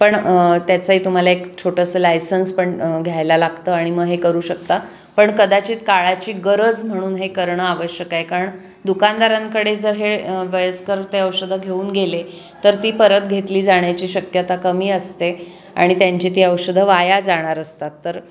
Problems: constant background noise, echo